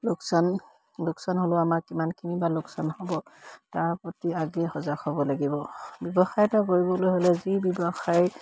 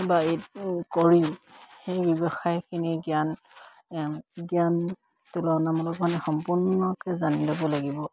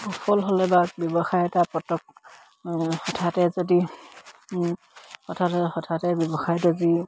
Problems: none marked